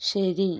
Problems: none marked